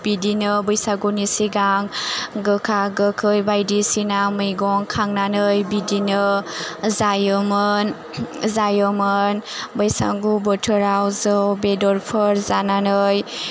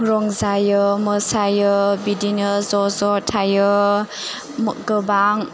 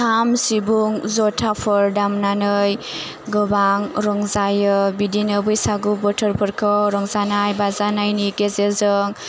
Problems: none marked